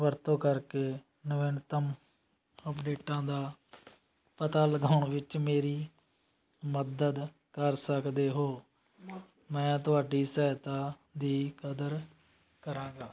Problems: constant background noise